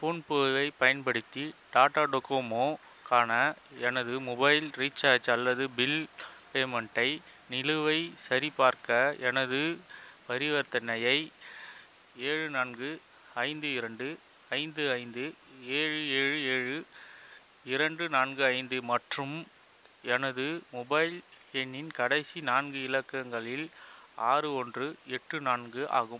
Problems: constant background noise